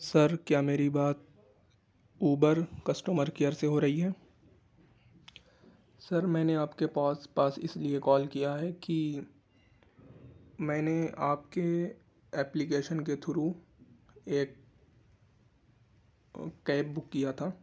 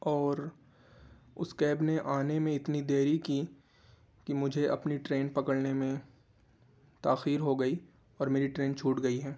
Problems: constant background noise